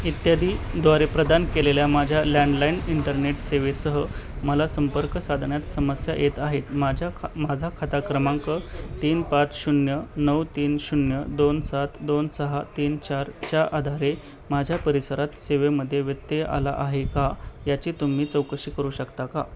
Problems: none marked